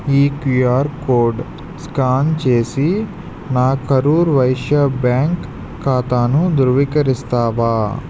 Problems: constant background noise